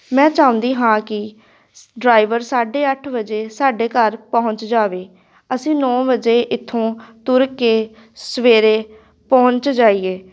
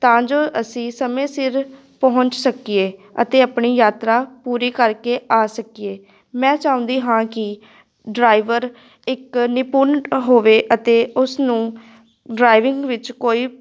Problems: none marked